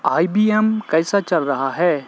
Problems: constant background noise